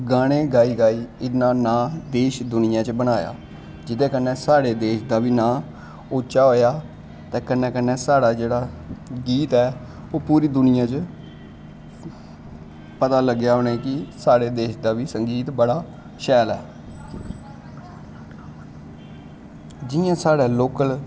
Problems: constant background noise, continuous background conversations